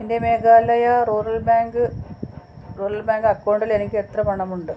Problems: constant background noise